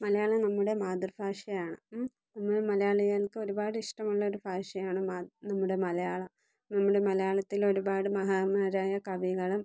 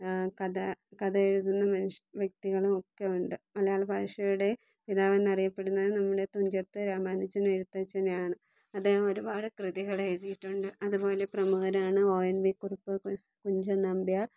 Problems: low volume